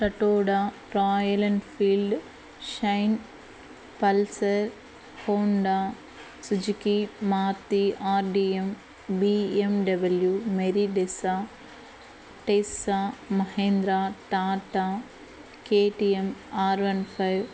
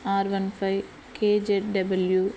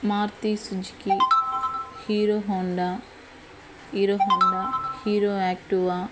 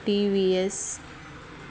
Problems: background sounds at intervals